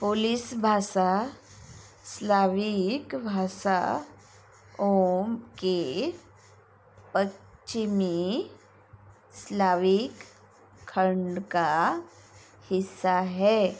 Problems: constant background noise